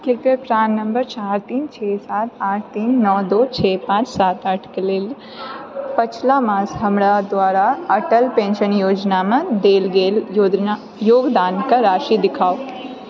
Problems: background sounds at intervals, background conversations at intervals